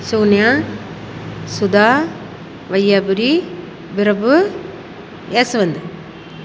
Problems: constant background noise